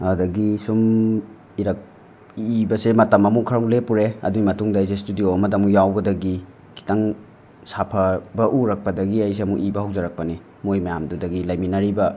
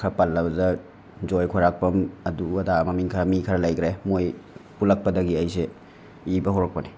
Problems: none marked